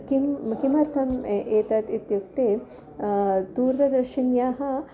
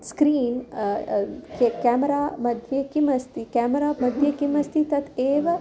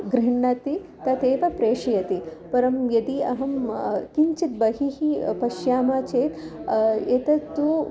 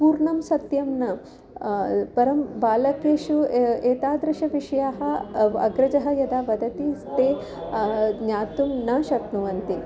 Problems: constant background noise, background conversations at intervals